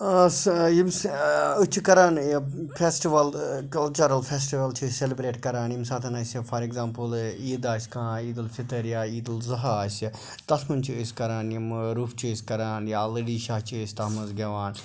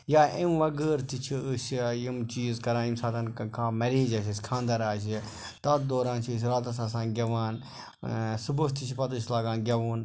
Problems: background sounds at intervals